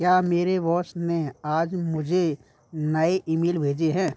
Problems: none marked